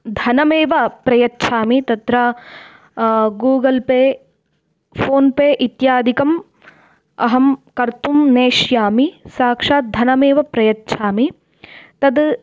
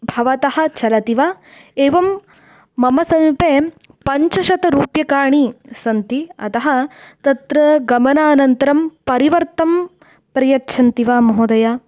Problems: none marked